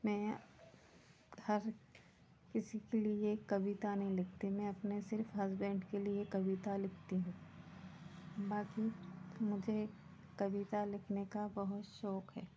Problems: constant background noise